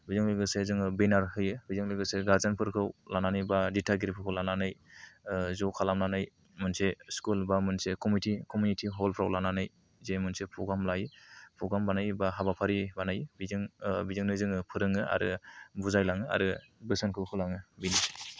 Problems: low volume